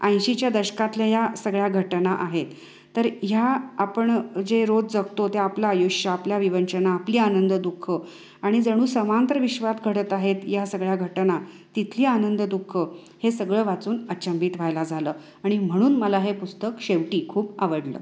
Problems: constant background noise, echo